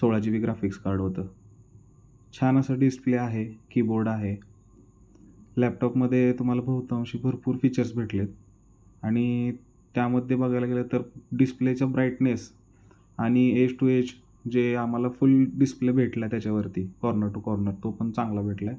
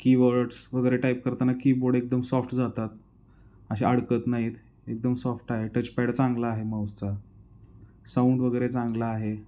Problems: none marked